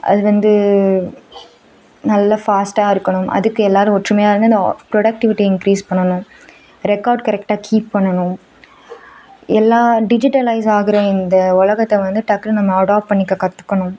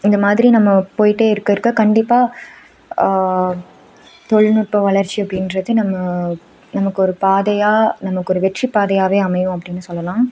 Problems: background sounds at intervals